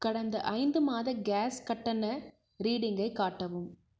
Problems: low volume